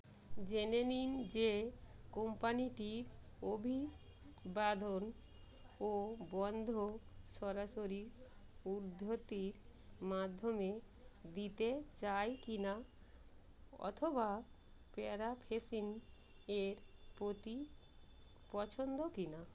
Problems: constant background noise, background conversations at intervals